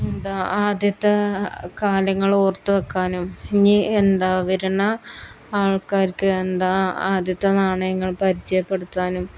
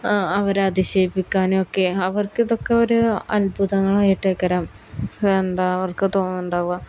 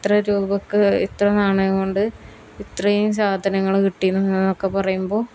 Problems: none marked